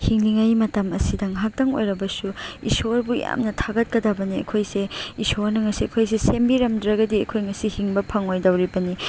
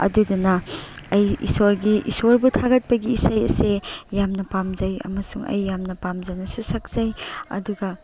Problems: background sounds at intervals